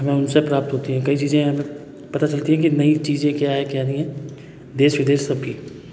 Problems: background sounds at intervals, background conversations at intervals